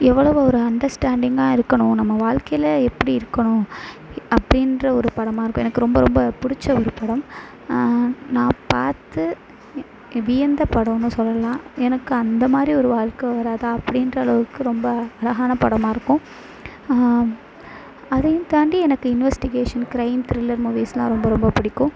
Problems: none marked